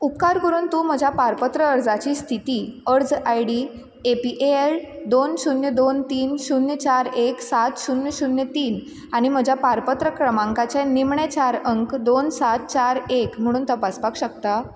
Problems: constant background noise